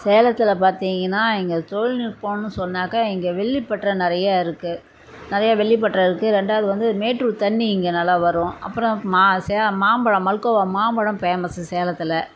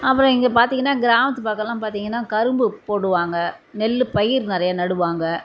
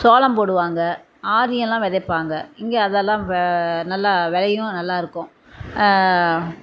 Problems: constant background noise